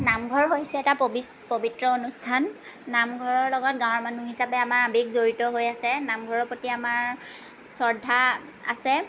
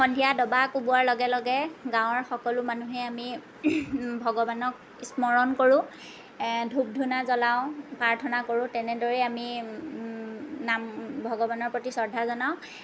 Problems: none marked